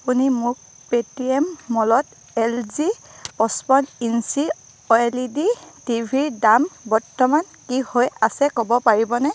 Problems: none marked